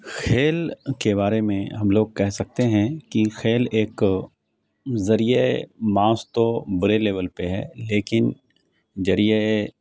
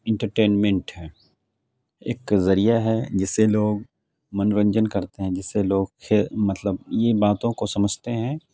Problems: none marked